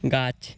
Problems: constant background noise